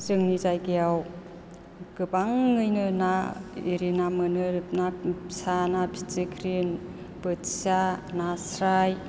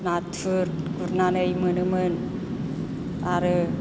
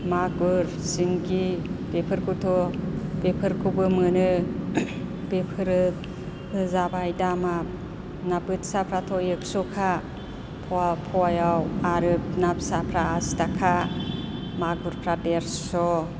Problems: none marked